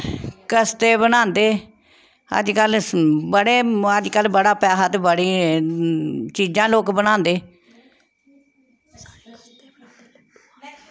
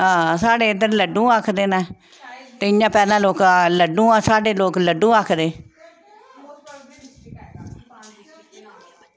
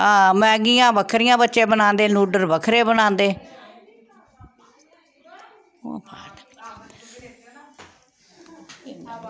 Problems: background conversations at intervals